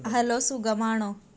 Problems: background conversations at intervals